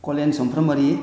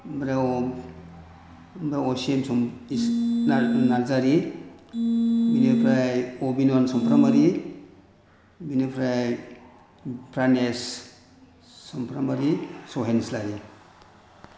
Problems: background sounds at intervals